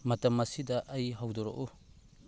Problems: background sounds at intervals